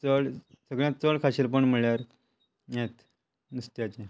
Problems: constant background noise